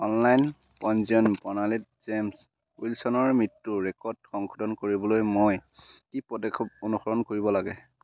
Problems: constant background noise